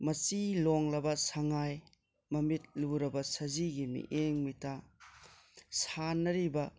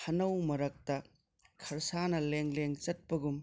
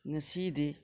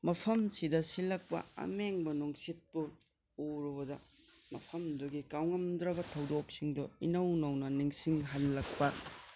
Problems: background conversations at intervals